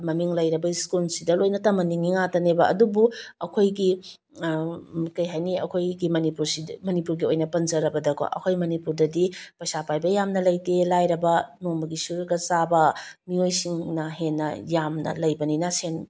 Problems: none marked